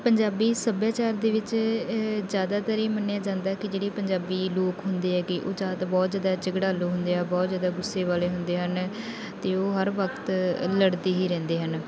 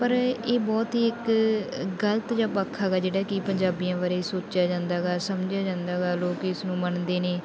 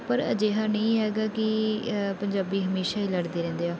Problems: continuous background conversations